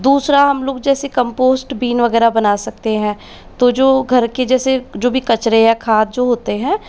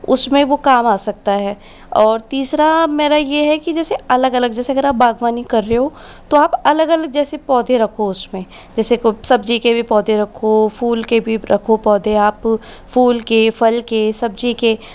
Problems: constant background noise